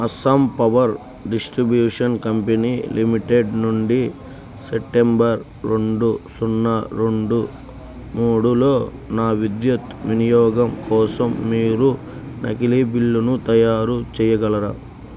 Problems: none marked